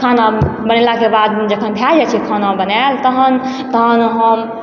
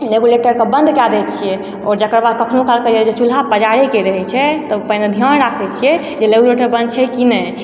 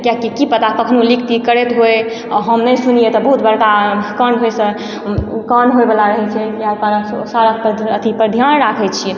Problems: background sounds at intervals, echo